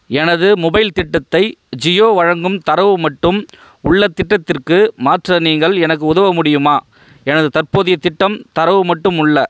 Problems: none marked